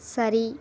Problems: none marked